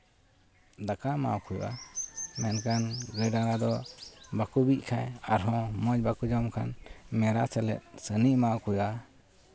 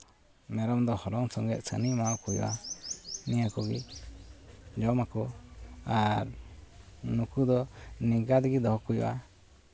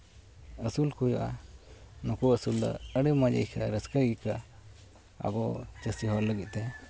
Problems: none marked